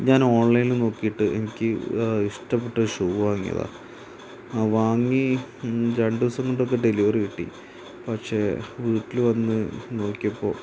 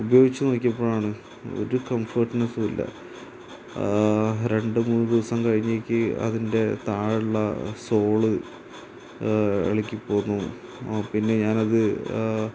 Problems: constant background noise, low volume